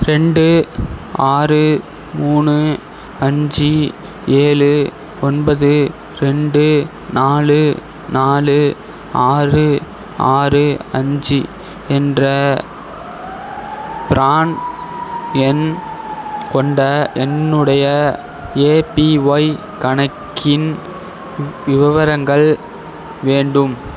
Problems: none marked